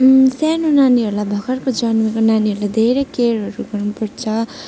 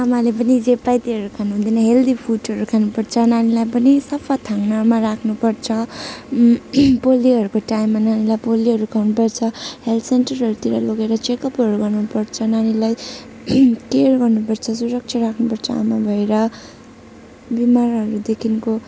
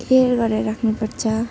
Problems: constant background noise